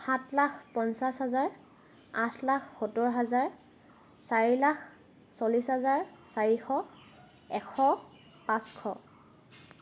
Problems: constant background noise